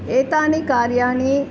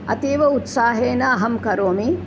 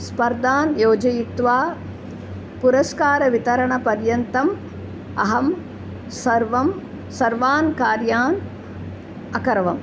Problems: constant background noise